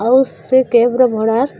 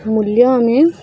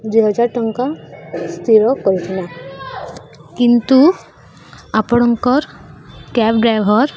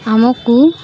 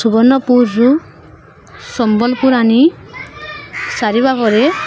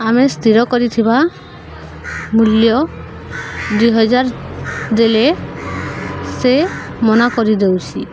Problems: constant background noise